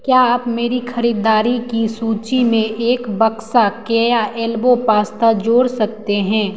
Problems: none marked